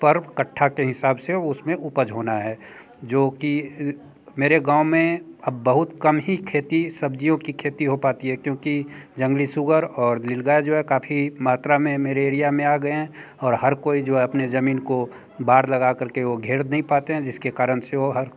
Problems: background conversations at intervals